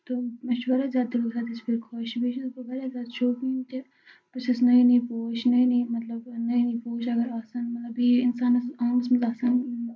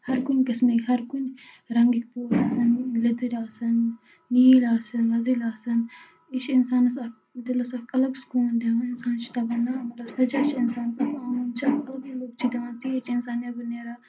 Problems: background sounds at intervals